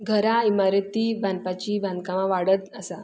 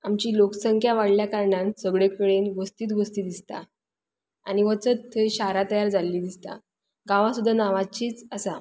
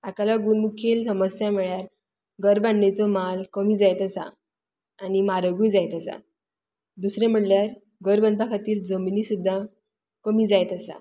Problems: constant background noise